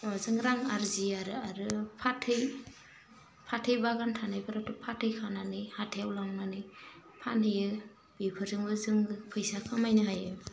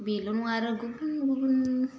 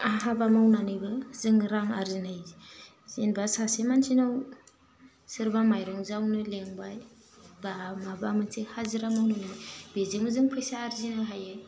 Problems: none marked